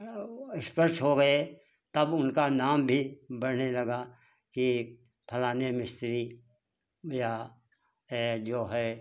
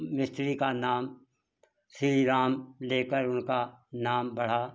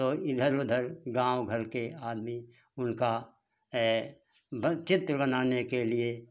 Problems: constant background noise